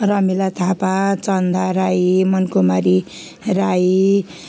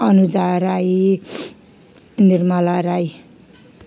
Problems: constant background noise